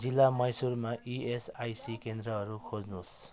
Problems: background sounds at intervals